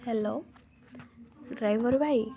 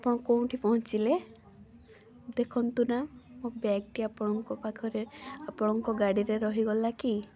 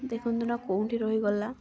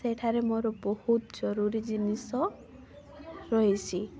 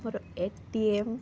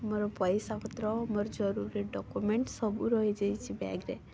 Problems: constant background noise, continuous background conversations